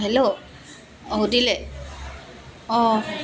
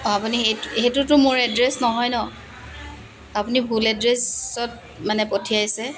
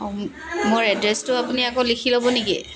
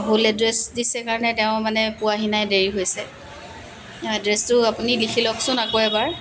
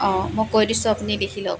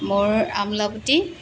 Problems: constant background noise